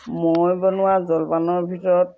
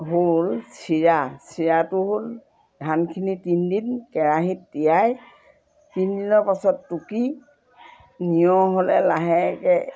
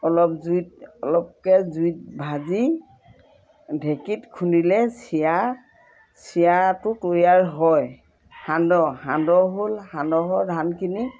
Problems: constant background noise